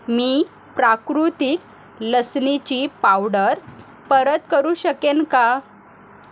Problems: constant background noise, continuous background conversations